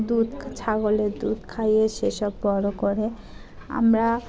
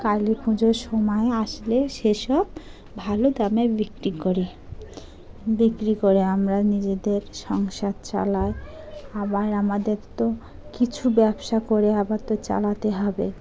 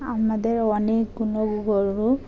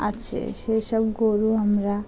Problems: background sounds at intervals, continuous background conversations